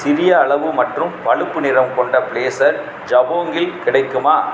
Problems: none marked